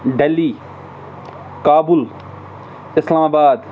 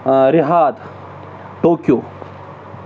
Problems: none marked